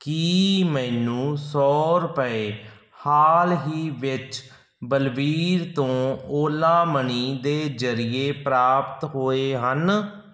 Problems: background sounds at intervals